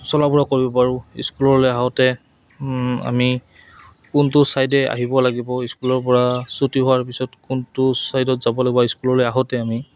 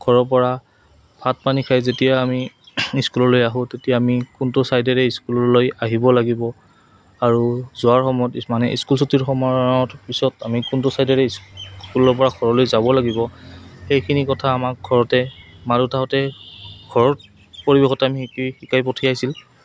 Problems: background sounds at intervals